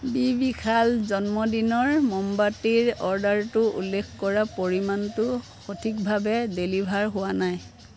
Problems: background sounds at intervals